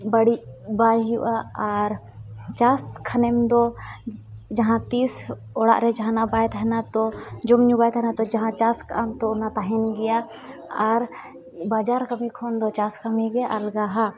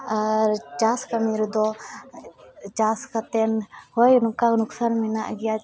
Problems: background sounds at intervals, background conversations at intervals